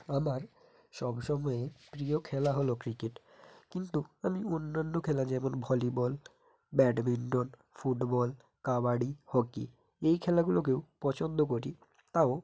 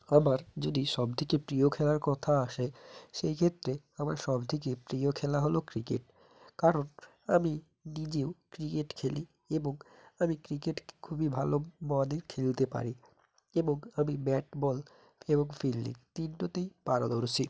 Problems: constant background noise